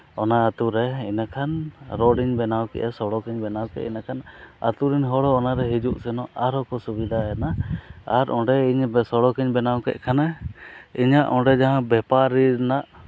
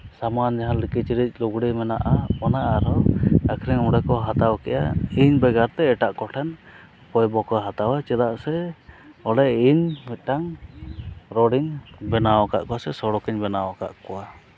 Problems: constant background noise